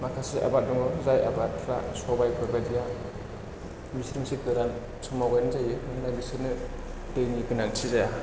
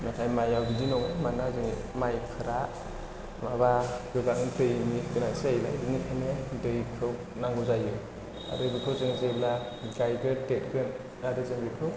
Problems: constant background noise